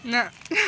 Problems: constant background noise